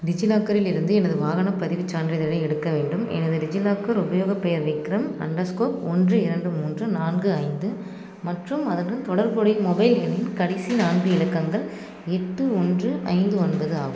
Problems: background sounds at intervals